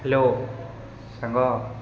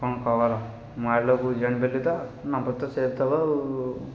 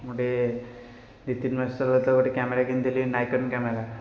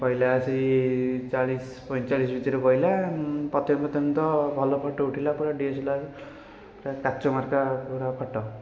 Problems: constant background noise, continuous background conversations